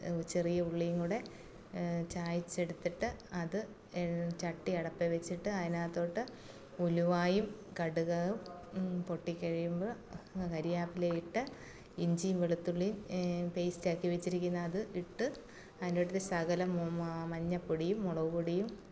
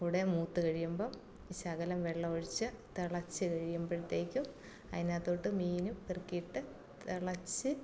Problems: none marked